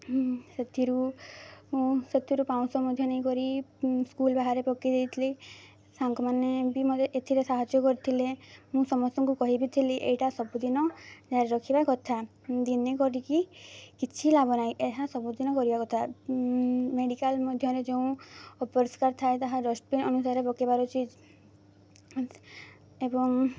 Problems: none marked